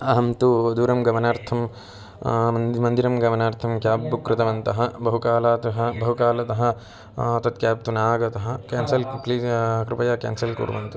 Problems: background sounds at intervals